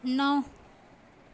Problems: constant background noise